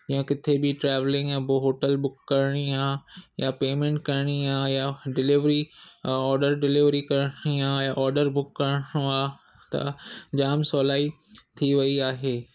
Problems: none marked